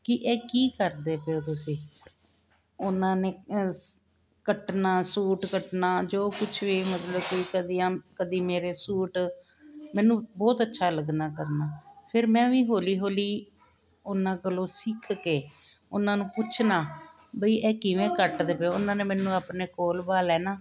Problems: continuous background conversations